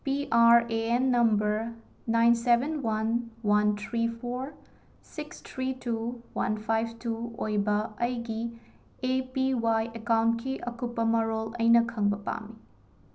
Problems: none marked